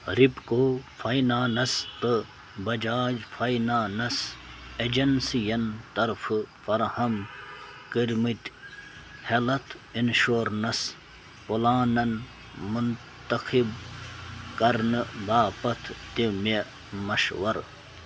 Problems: constant background noise